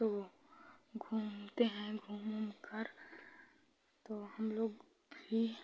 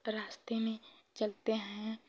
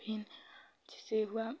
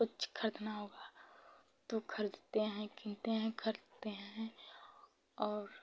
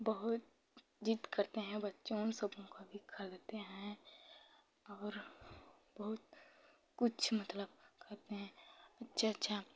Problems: low volume